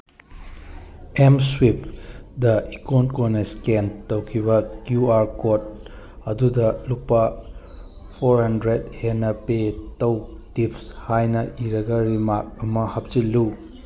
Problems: background sounds at intervals